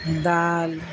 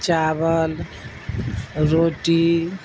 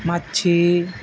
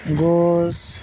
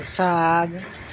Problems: constant background noise